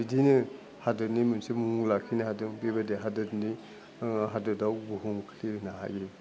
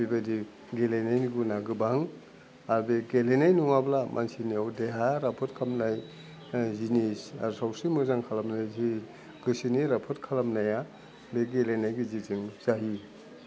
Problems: low volume